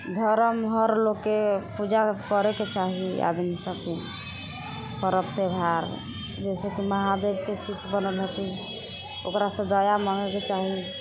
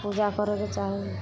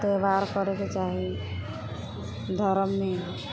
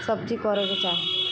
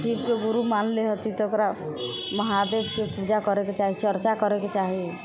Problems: constant background noise